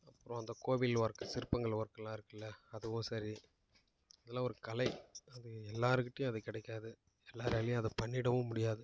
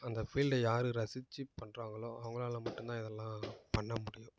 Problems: none marked